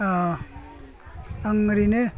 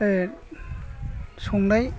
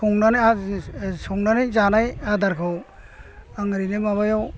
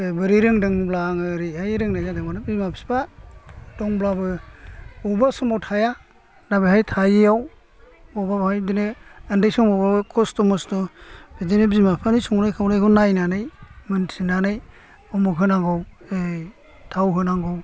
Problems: none marked